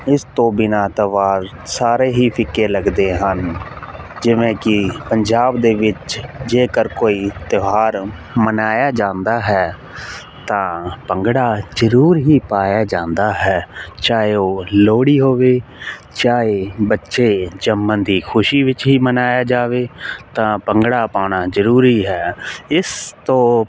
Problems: constant background noise